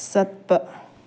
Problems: low volume